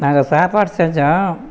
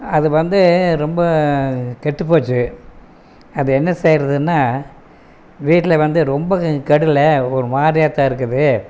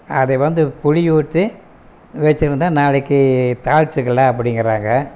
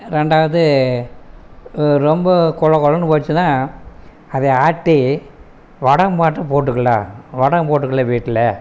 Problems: none marked